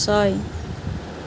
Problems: constant background noise